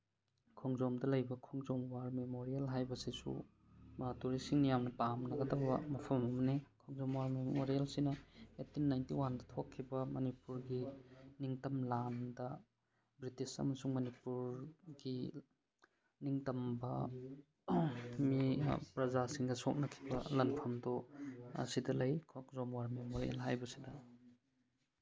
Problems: background sounds at intervals